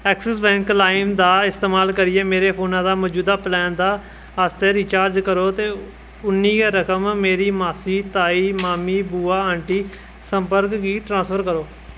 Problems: constant background noise